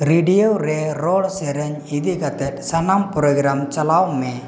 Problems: none marked